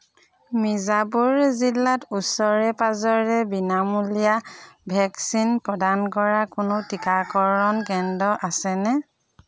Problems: none marked